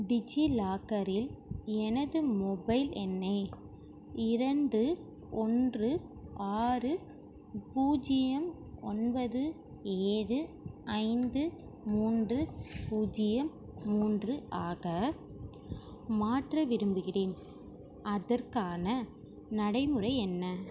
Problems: background sounds at intervals